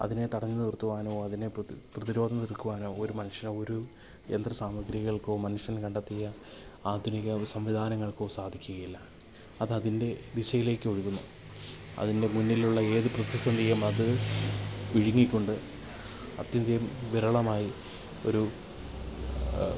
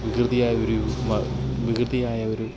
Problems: constant background noise, low volume